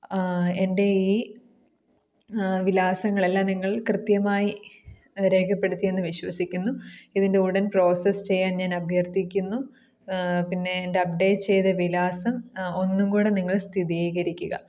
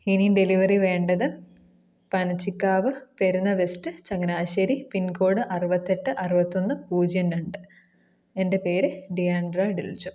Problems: none marked